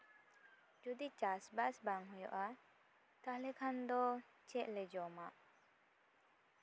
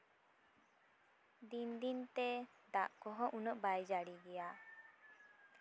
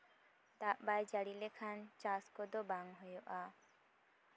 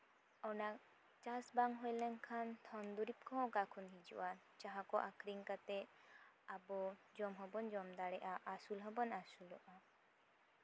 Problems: none marked